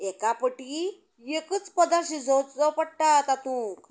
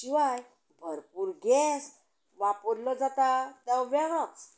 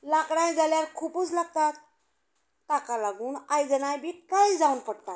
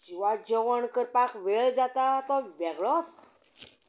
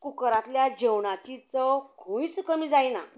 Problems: continuous background conversations